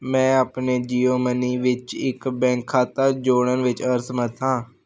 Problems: constant background noise